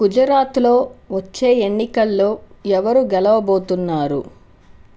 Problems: constant background noise